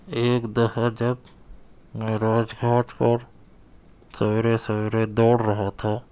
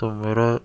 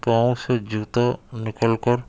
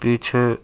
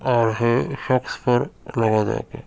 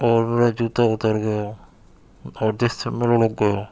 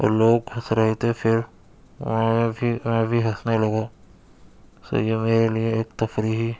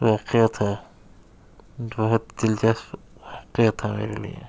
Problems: background sounds at intervals